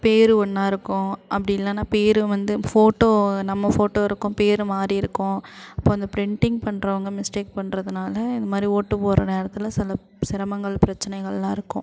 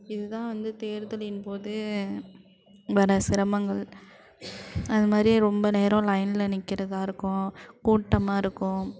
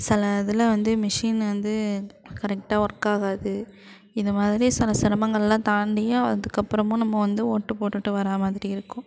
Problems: constant background noise